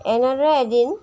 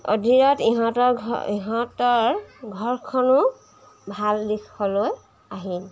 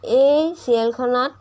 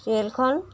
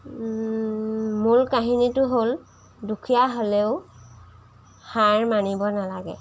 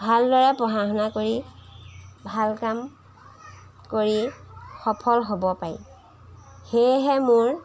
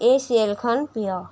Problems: background sounds at intervals